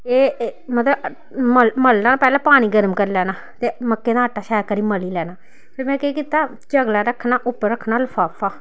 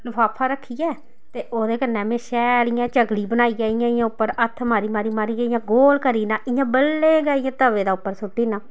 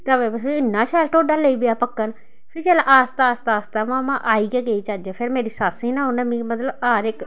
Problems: none marked